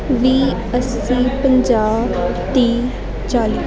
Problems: none marked